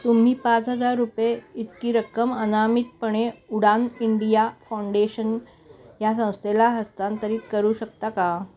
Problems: continuous background conversations